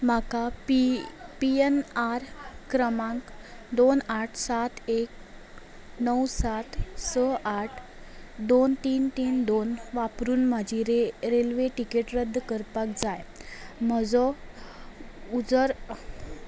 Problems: none marked